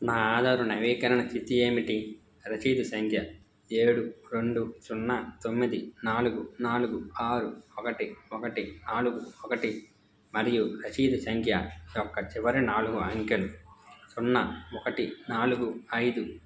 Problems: background sounds at intervals